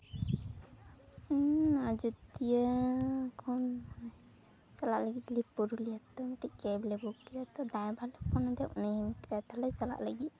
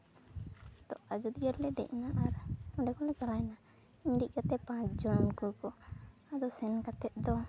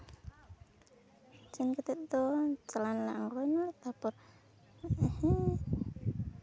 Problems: low volume